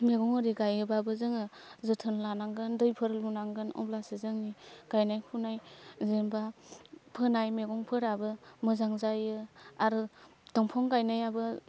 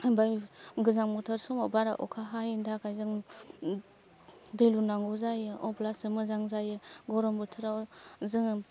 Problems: none marked